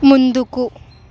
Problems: constant background noise